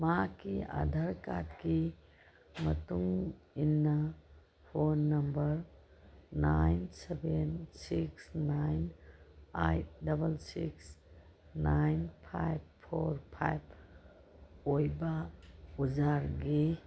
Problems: background sounds at intervals